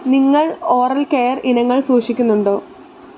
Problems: constant background noise